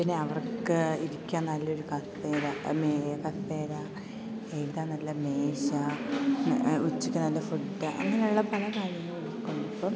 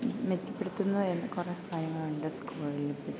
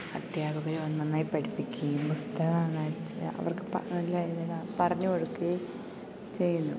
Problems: constant background noise, low volume